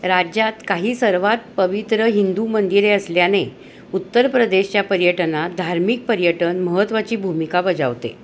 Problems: constant background noise